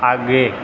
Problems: constant background noise